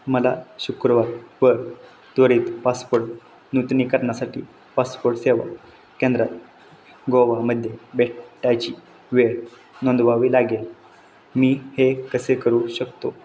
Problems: none marked